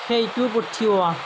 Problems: constant background noise